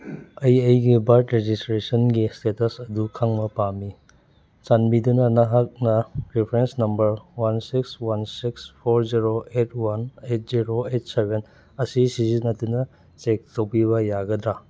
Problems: none marked